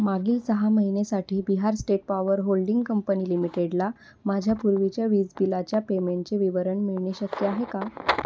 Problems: constant background noise